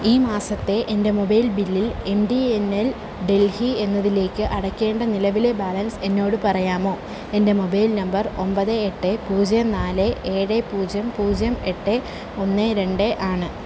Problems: constant background noise